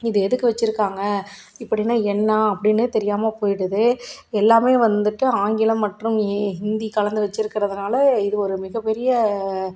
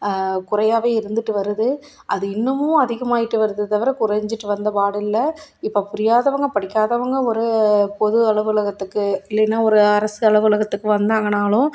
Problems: none marked